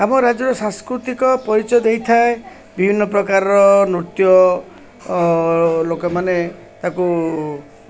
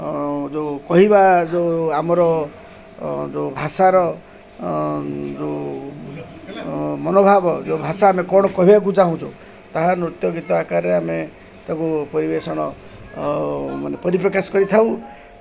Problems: constant background noise, continuous background conversations